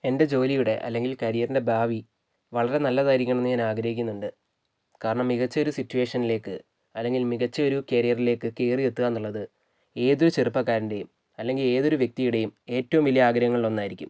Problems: none marked